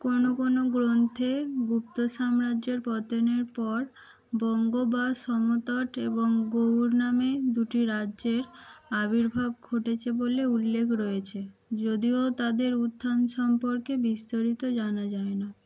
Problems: constant background noise